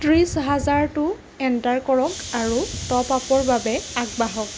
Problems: constant background noise